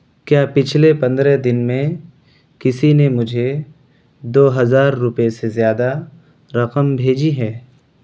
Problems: constant background noise